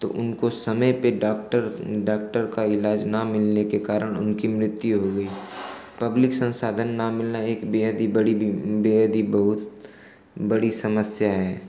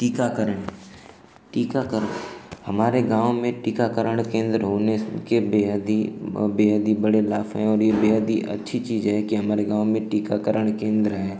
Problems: constant background noise